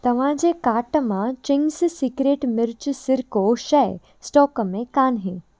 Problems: constant background noise